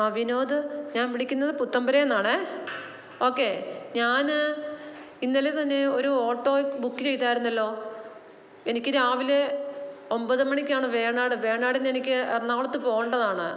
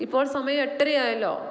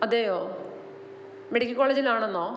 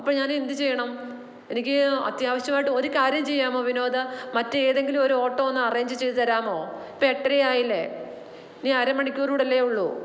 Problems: echo